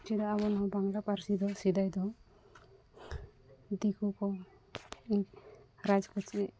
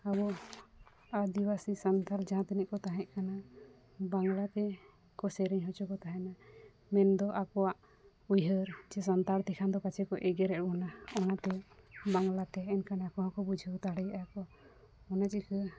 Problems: background sounds at intervals